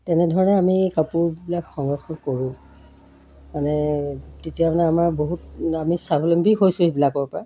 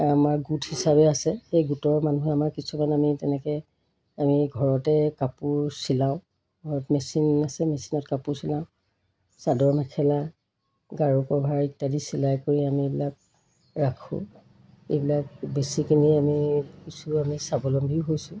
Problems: background sounds at intervals